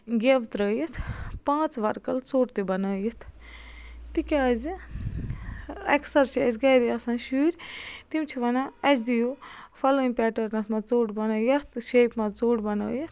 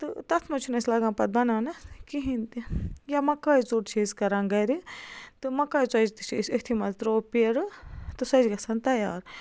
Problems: constant background noise